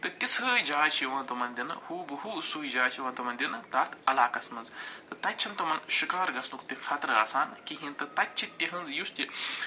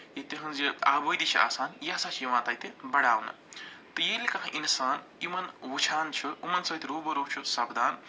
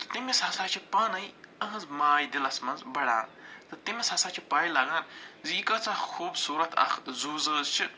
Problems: none marked